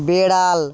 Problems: background sounds at intervals, background conversations at intervals